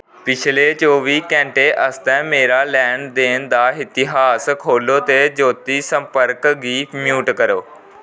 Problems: background sounds at intervals